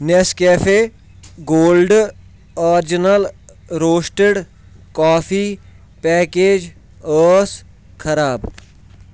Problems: background sounds at intervals